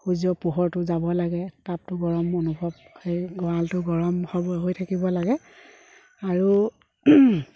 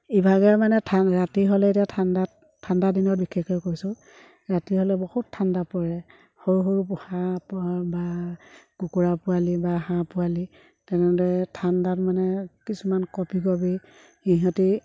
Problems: background sounds at intervals